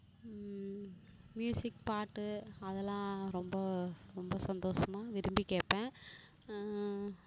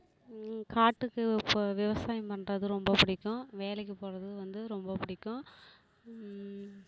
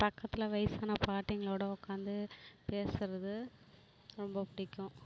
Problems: constant background noise